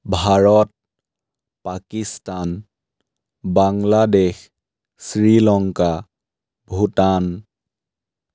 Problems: none marked